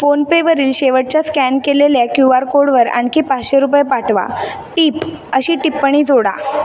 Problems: none marked